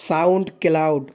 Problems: none marked